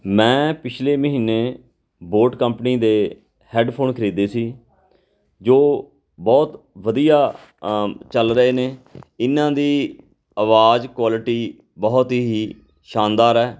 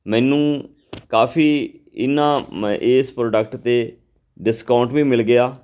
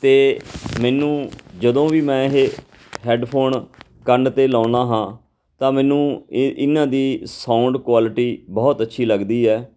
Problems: background conversations at intervals